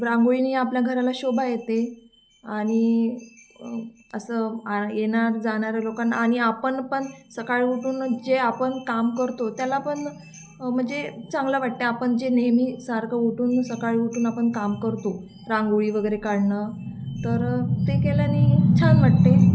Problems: constant background noise